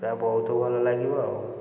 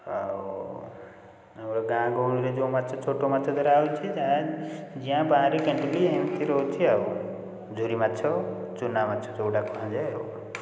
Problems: none marked